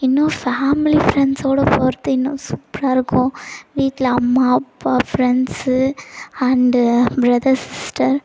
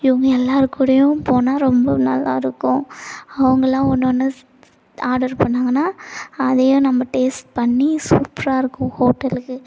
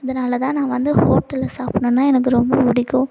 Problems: background sounds at intervals